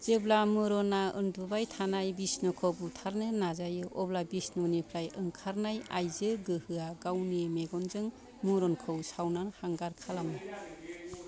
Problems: background conversations at intervals